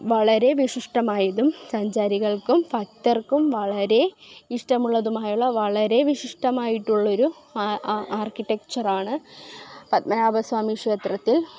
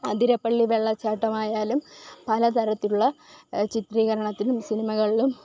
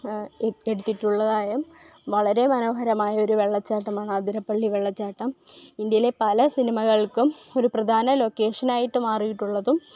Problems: background sounds at intervals